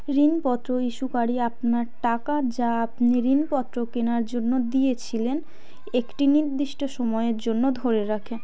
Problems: background conversations at intervals